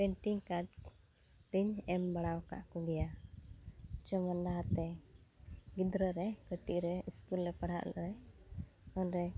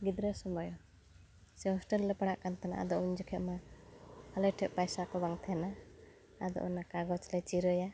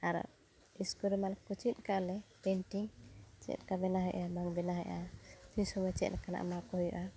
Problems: background sounds at intervals